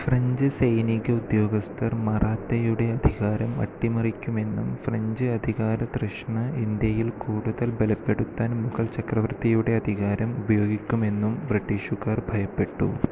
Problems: constant background noise, low volume